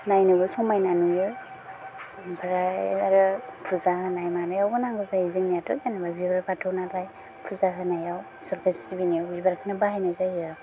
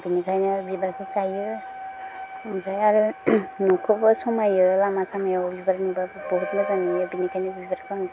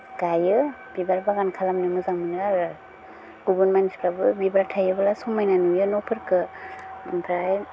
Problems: low volume